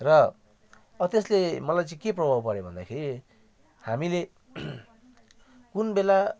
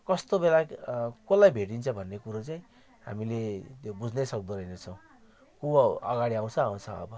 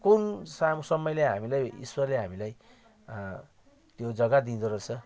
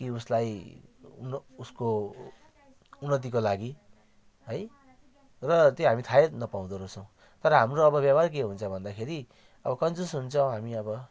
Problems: none marked